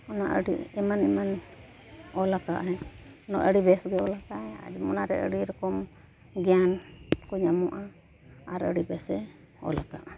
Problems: background sounds at intervals